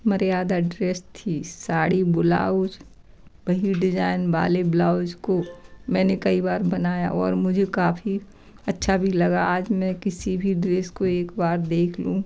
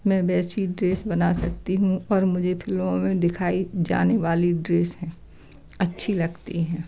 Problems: background sounds at intervals, background conversations at intervals